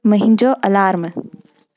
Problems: constant background noise